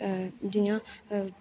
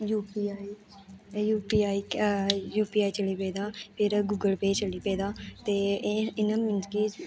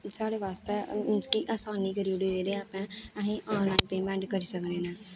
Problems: constant background noise